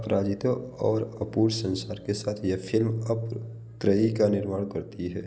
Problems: background sounds at intervals